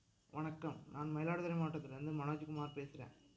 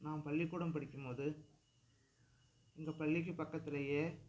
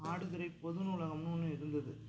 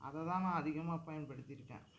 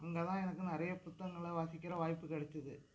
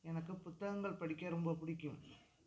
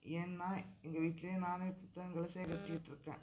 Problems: background sounds at intervals, low volume